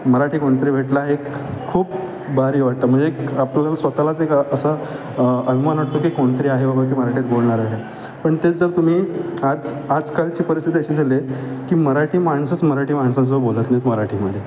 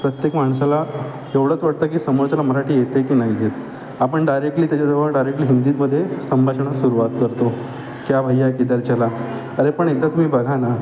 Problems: constant background noise, continuous background conversations